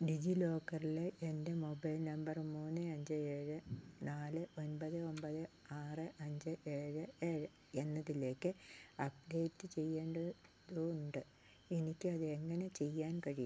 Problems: none marked